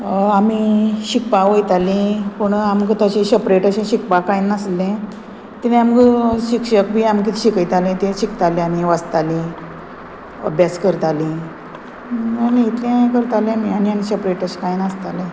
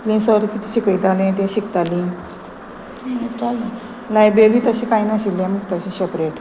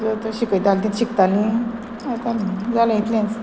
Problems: constant background noise